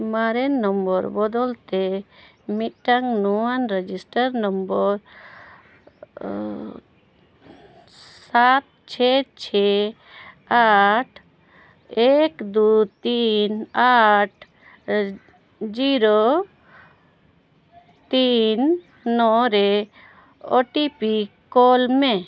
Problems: none marked